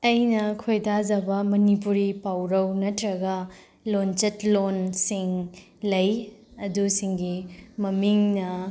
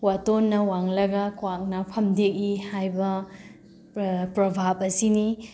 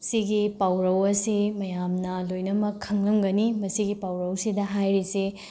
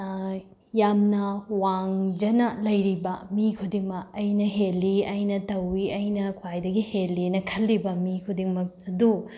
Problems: none marked